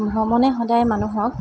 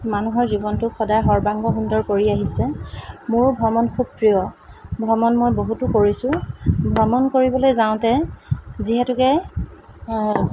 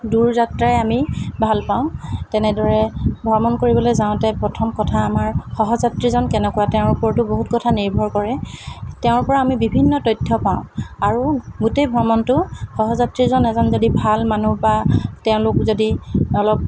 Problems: constant background noise